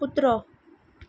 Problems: none marked